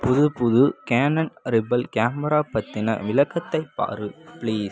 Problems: background conversations at intervals